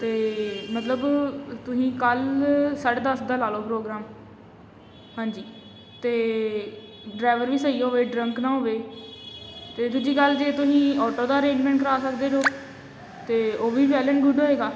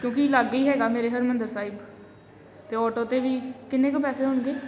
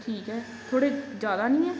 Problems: constant background noise